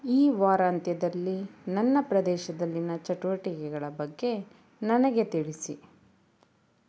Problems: none marked